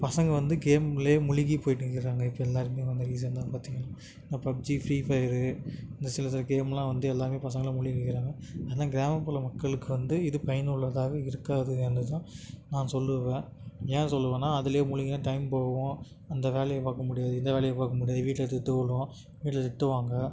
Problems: none marked